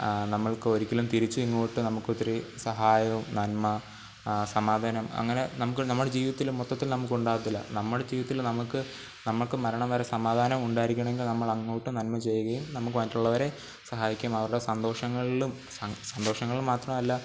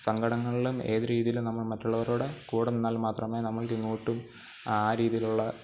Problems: constant background noise, low volume